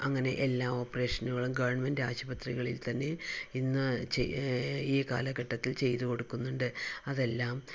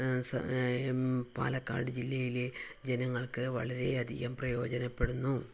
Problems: low volume